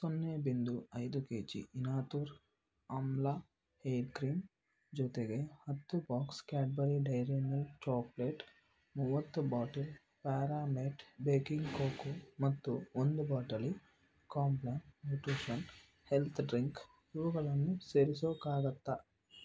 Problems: background sounds at intervals